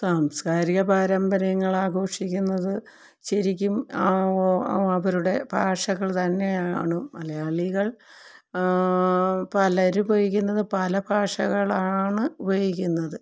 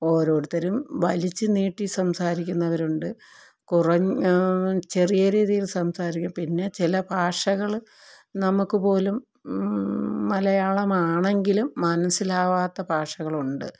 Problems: low volume